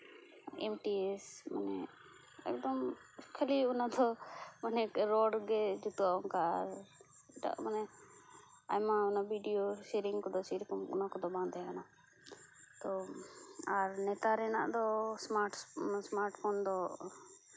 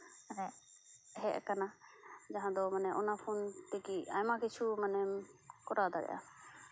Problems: constant background noise